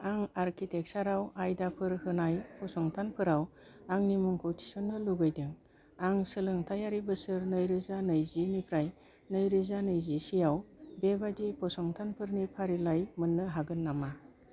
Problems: low volume